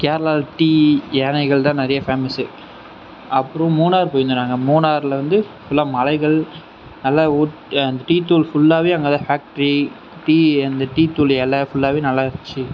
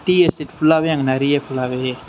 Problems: none marked